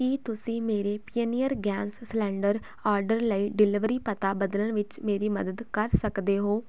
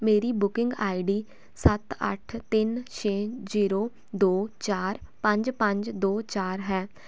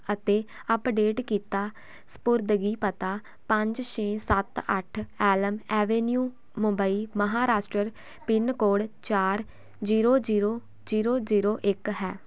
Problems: none marked